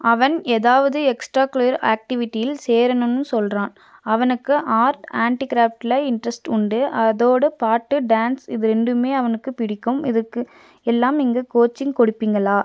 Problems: none marked